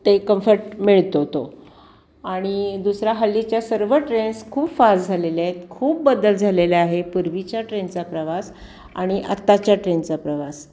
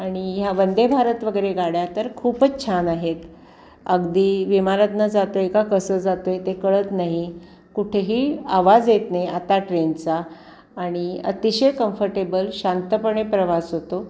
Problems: none marked